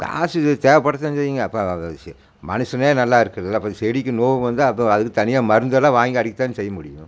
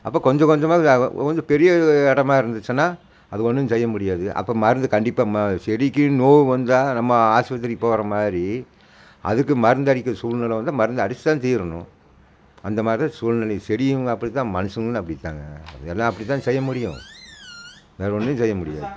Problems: none marked